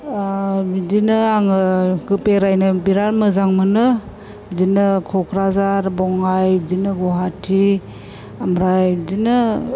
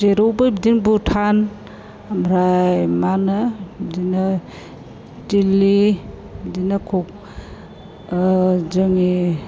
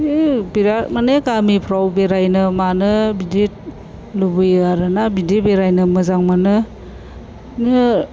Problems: none marked